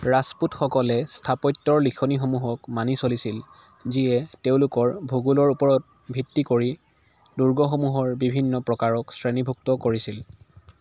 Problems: constant background noise